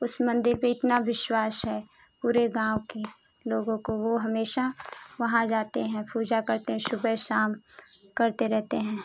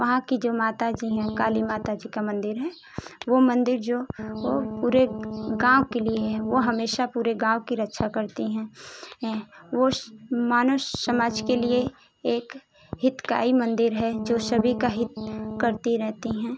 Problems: constant background noise